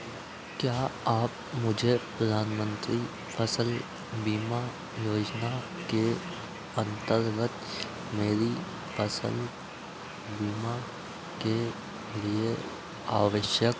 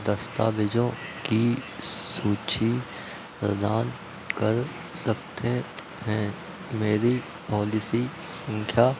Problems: none marked